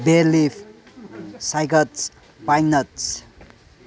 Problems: low volume